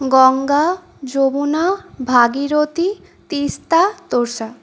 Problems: none marked